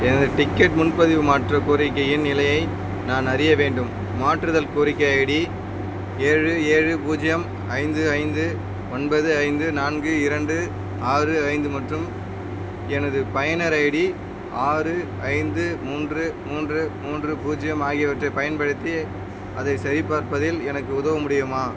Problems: constant background noise